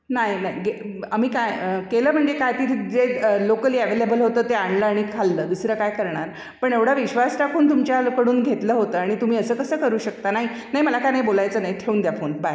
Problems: background sounds at intervals, echo